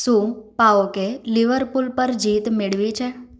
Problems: echo